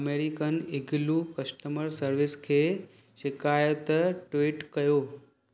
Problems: none marked